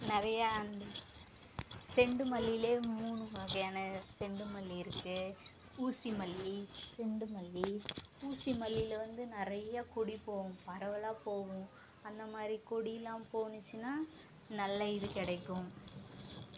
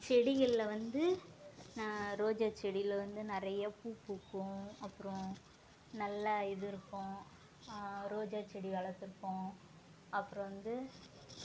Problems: constant background noise